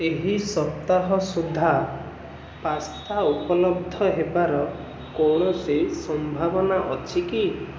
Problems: constant background noise